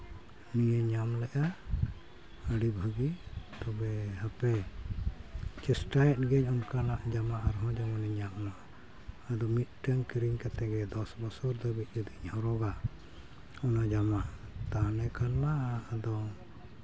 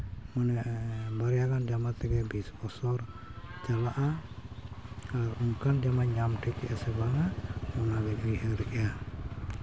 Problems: constant background noise, background conversations at intervals